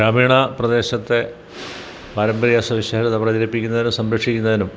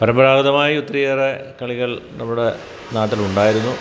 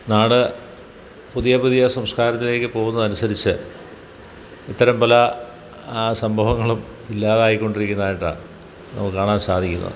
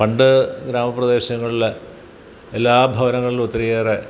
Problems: background sounds at intervals